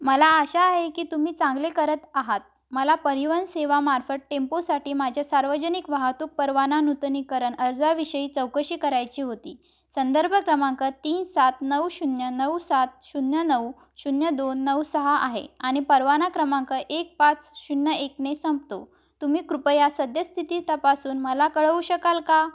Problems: background sounds at intervals